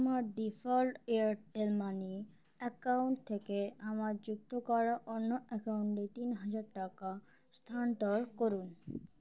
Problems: none marked